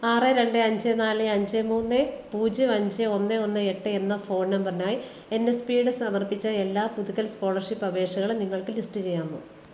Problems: constant background noise